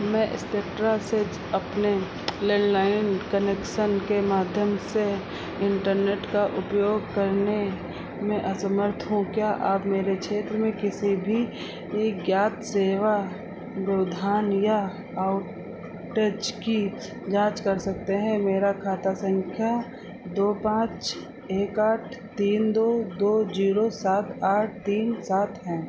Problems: none marked